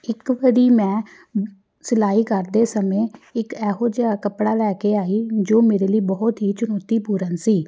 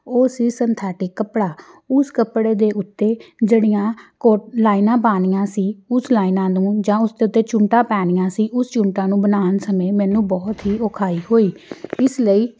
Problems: background sounds at intervals